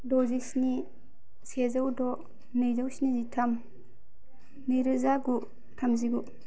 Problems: low volume